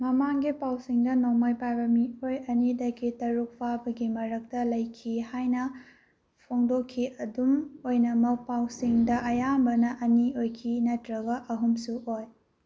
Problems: none marked